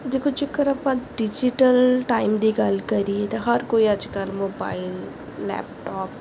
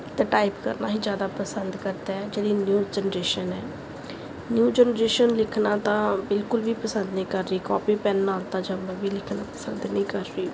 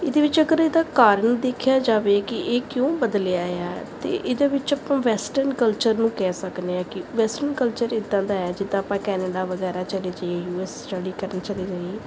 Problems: background sounds at intervals